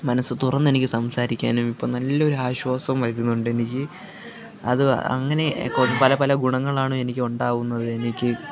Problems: constant background noise, background conversations at intervals, low volume